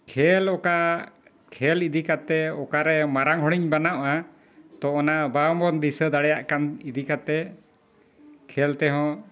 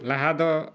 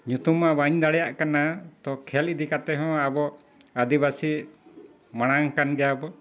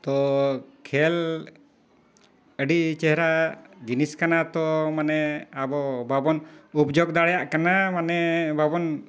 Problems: background sounds at intervals